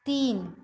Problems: constant background noise, background conversations at intervals